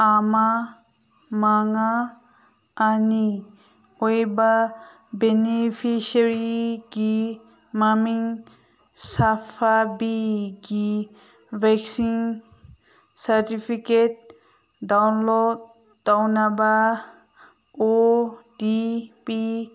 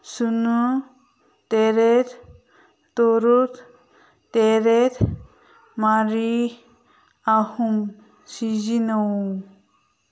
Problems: none marked